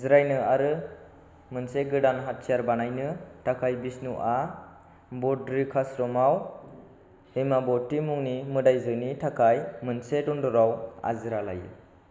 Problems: constant background noise